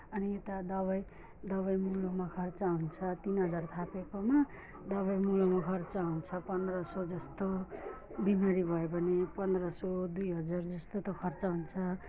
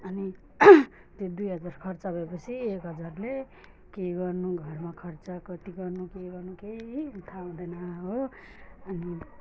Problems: background conversations at intervals, low volume